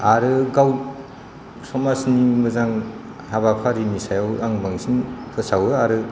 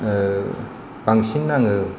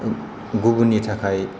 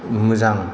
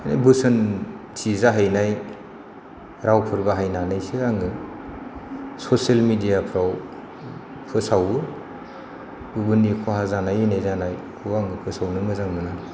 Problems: constant background noise